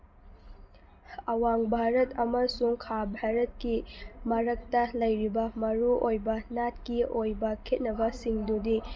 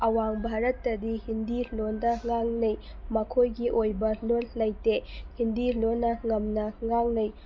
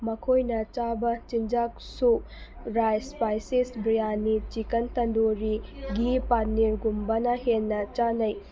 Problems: background sounds at intervals, background conversations at intervals